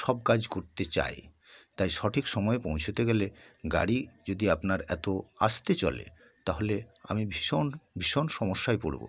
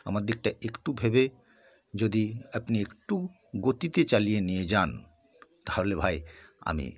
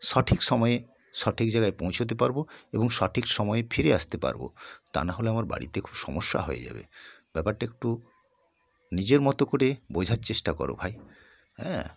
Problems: background sounds at intervals